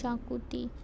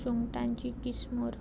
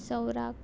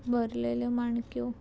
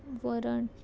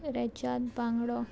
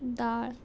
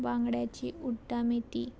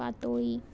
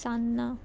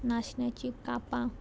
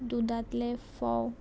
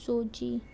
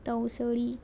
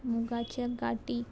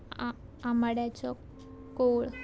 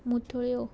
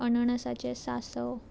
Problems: none marked